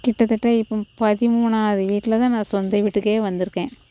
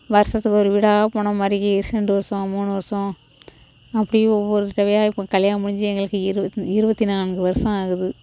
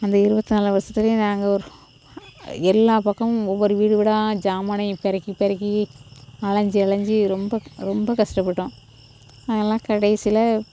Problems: constant background noise